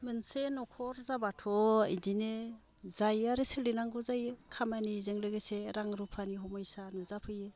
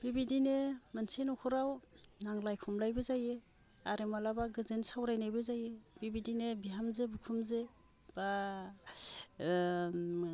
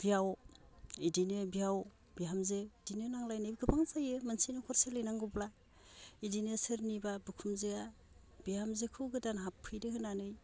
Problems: low volume